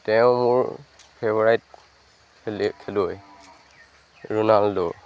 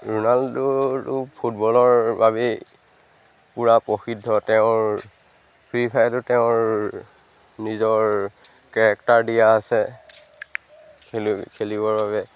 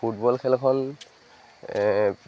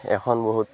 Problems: background sounds at intervals